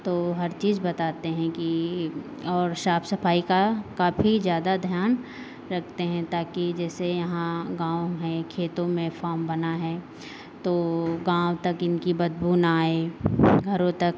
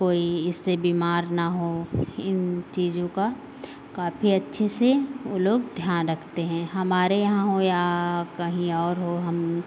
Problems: none marked